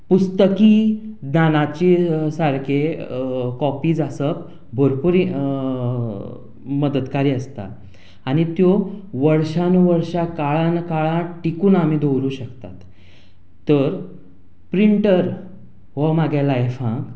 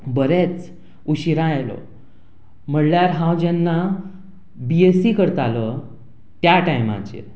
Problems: background sounds at intervals